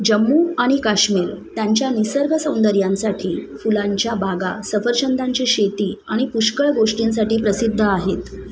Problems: continuous background conversations